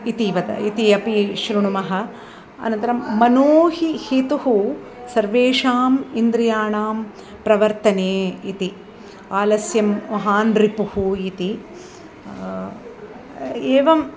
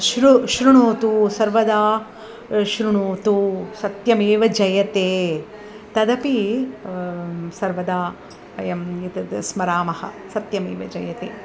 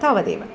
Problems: none marked